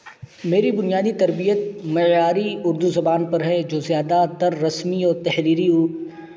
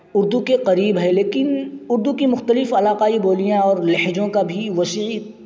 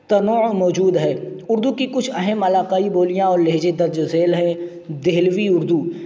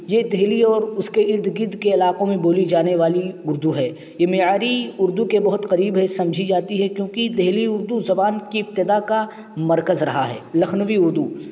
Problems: constant background noise